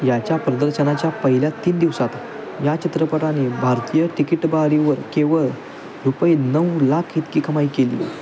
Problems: constant background noise, continuous background conversations